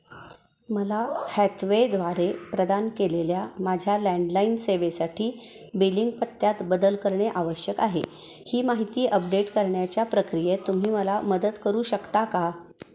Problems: constant background noise, continuous background conversations, echo